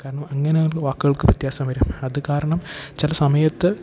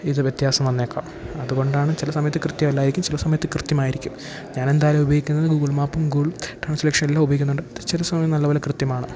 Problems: background sounds at intervals